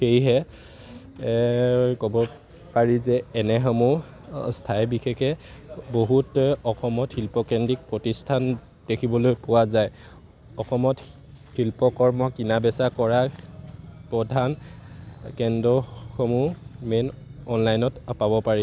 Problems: none marked